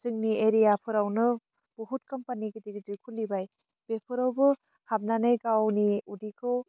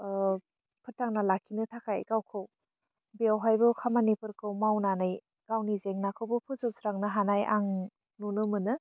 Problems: low volume